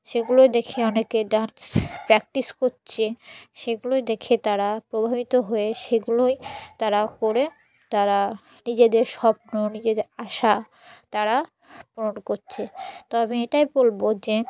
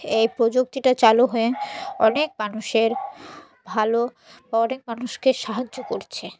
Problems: constant background noise